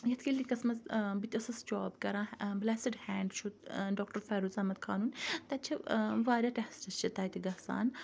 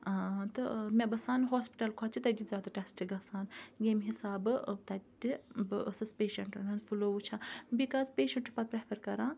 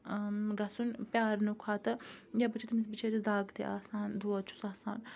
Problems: background conversations at intervals